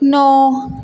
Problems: none marked